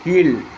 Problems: constant background noise